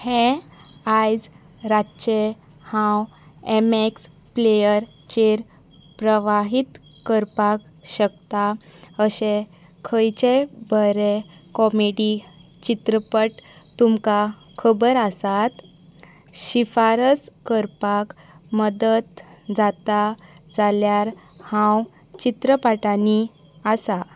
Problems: constant background noise